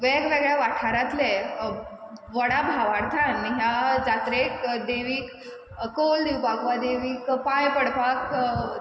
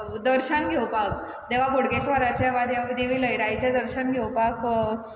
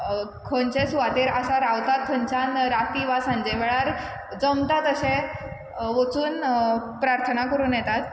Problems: none marked